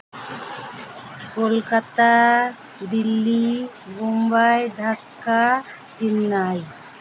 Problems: constant background noise